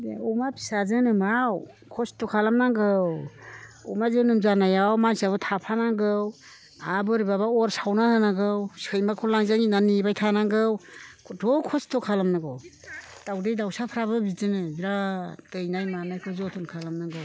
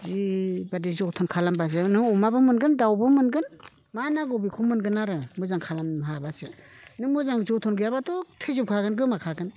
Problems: constant background noise